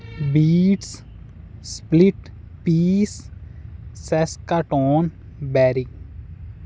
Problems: constant background noise